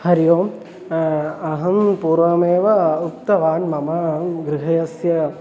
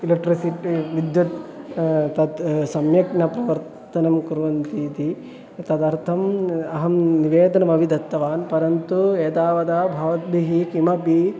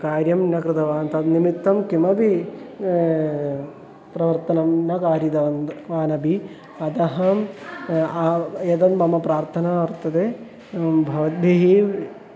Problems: none marked